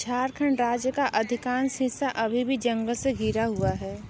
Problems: none marked